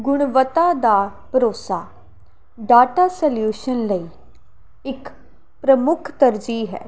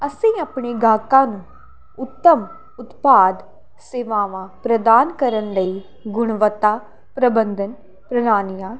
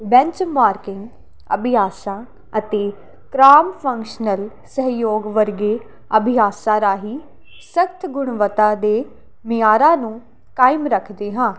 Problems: none marked